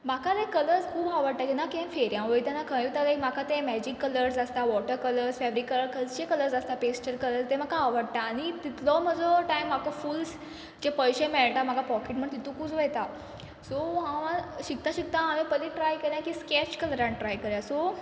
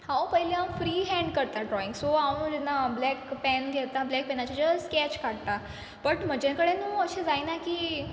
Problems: background conversations at intervals